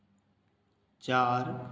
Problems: constant background noise